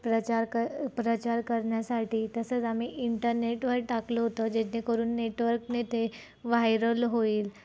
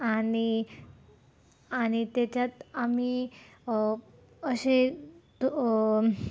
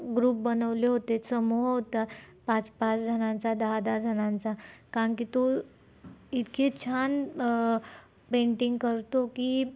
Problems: constant background noise, low volume